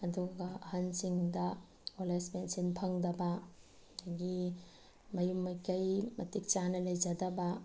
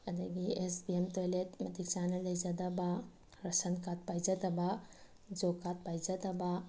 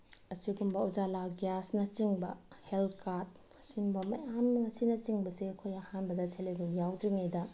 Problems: none marked